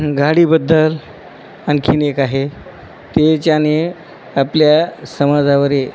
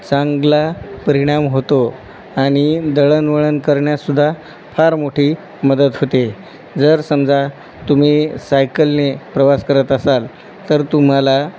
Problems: none marked